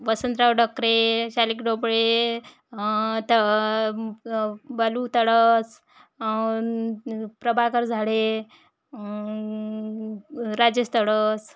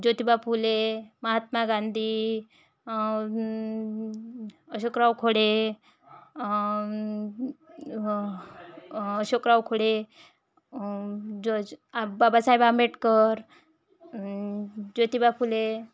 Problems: background conversations at intervals